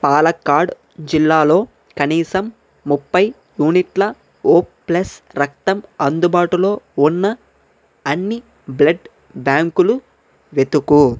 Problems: none marked